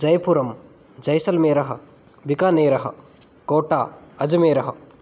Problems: none marked